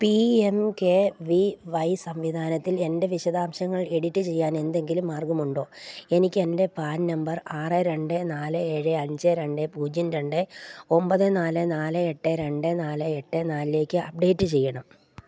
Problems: none marked